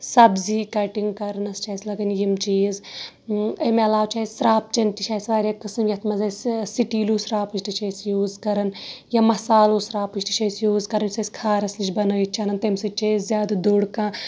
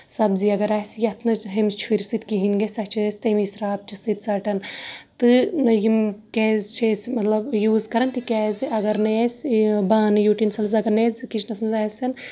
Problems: background sounds at intervals